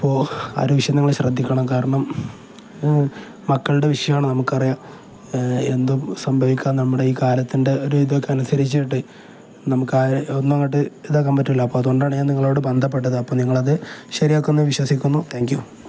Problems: none marked